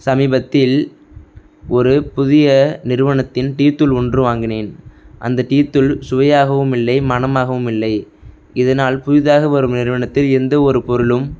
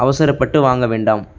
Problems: background sounds at intervals